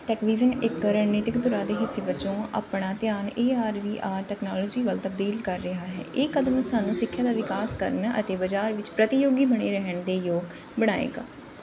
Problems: constant background noise